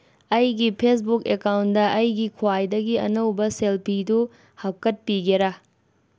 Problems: background sounds at intervals